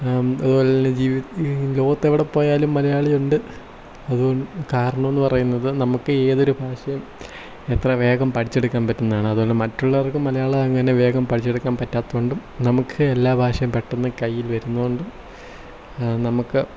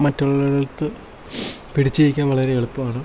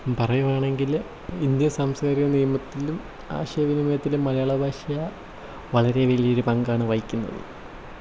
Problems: low volume